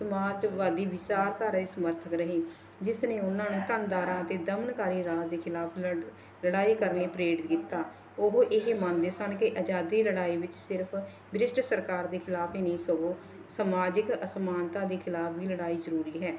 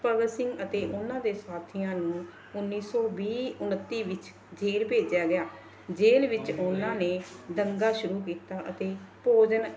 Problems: none marked